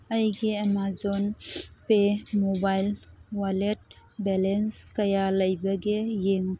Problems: constant background noise